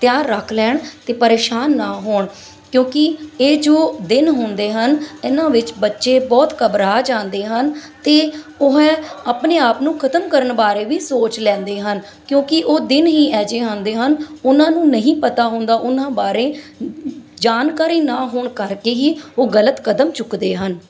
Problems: background sounds at intervals